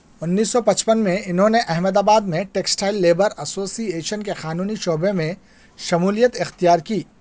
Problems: background sounds at intervals